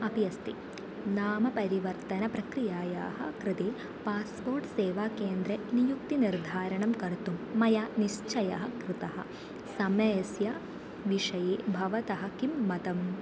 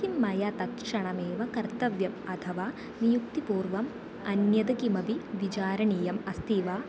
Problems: constant background noise, low volume